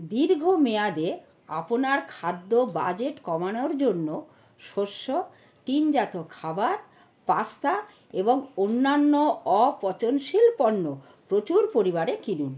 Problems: none marked